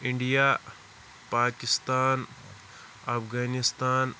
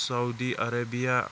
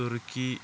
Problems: constant background noise